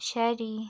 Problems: low volume